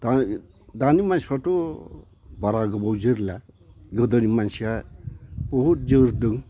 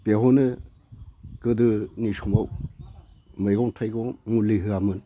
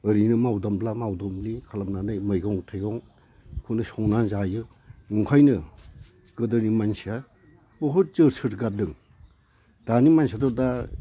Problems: constant background noise